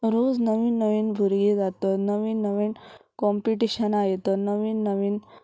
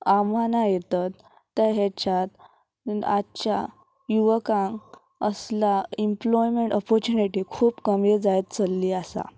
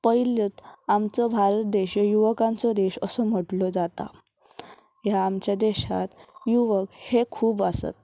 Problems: none marked